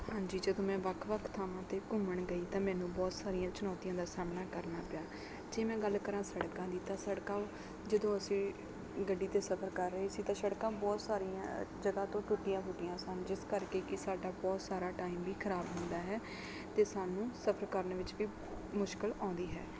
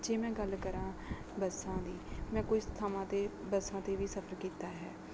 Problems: none marked